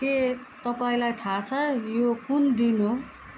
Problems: background sounds at intervals